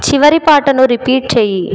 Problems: echo